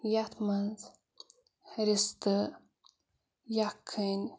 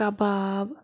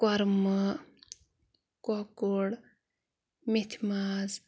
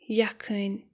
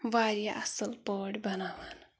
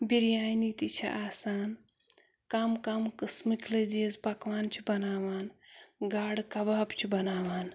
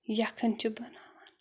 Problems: none marked